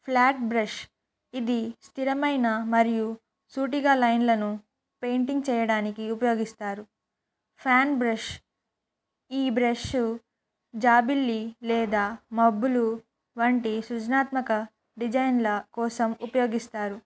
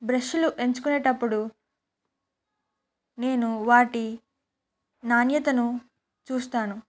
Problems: none marked